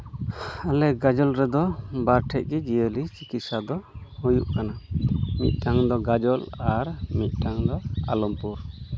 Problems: background sounds at intervals, continuous background conversations